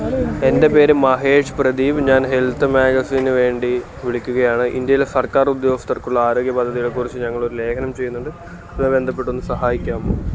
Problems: constant background noise